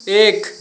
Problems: constant background noise